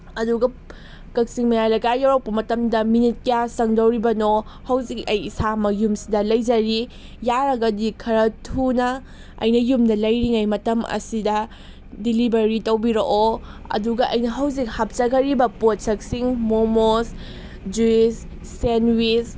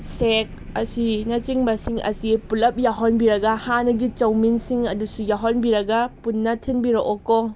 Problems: none marked